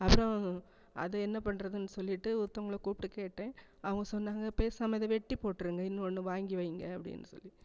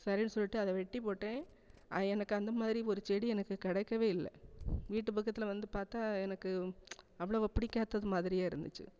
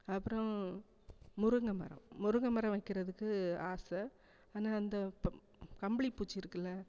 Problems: none marked